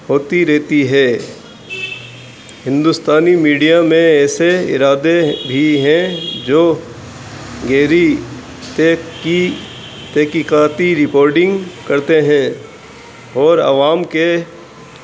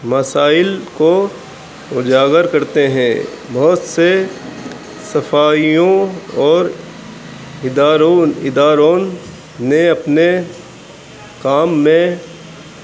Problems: constant background noise, low volume